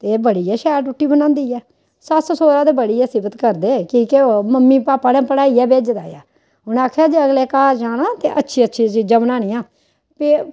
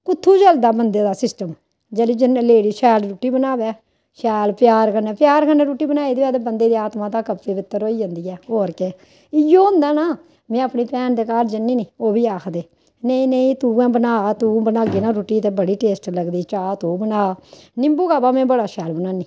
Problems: none marked